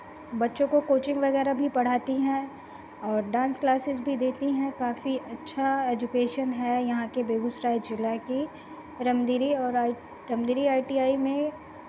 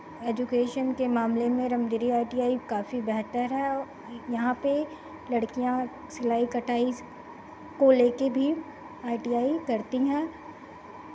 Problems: constant background noise